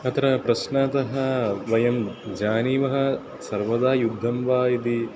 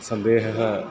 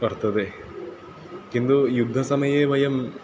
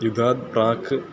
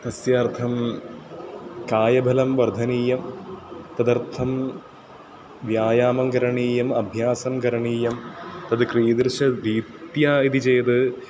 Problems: constant background noise, continuous background conversations